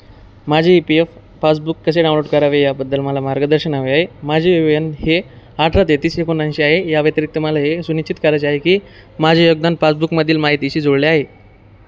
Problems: none marked